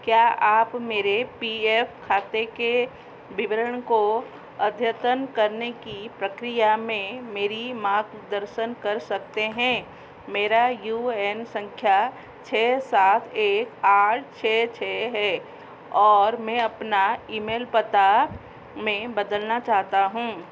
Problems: background sounds at intervals